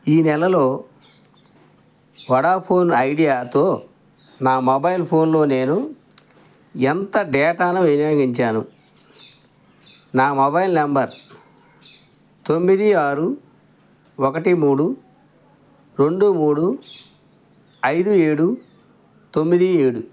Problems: none marked